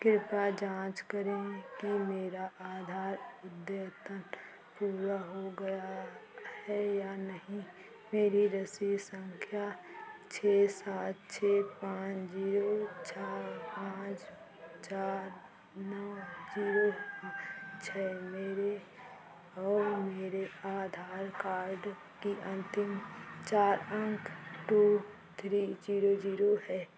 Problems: constant background noise